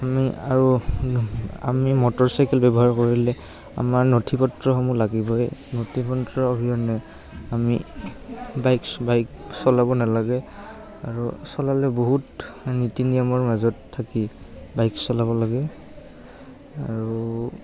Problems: background sounds at intervals, background conversations at intervals